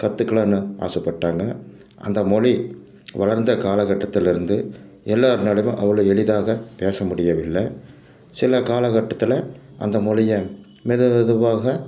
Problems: background sounds at intervals